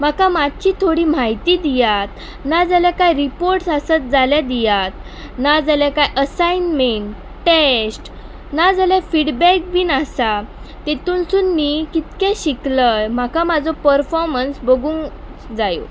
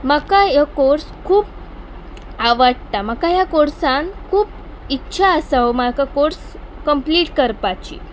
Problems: constant background noise